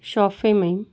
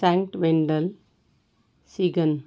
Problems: constant background noise